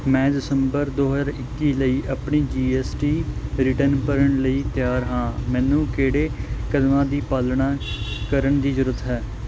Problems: constant background noise